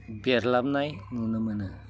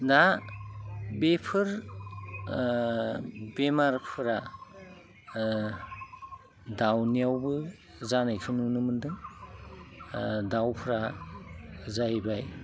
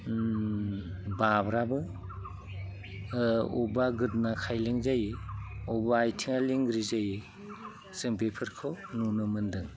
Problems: low volume